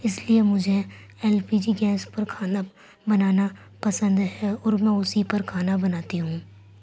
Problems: none marked